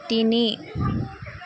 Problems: none marked